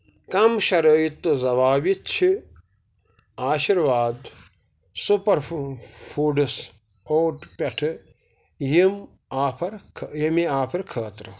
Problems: none marked